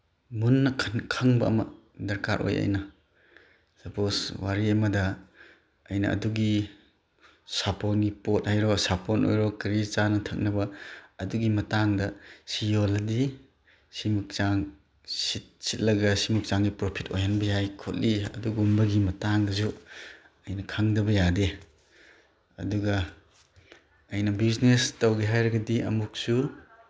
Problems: none marked